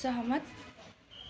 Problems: none marked